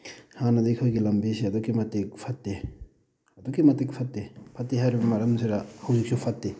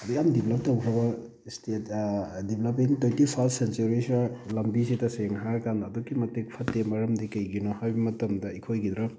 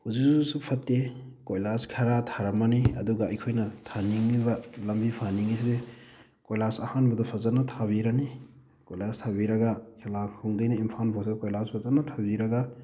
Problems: background sounds at intervals